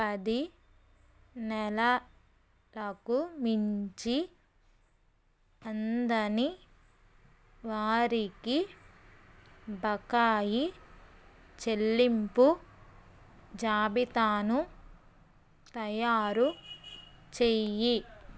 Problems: none marked